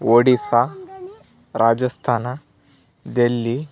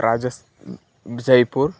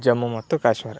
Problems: background conversations at intervals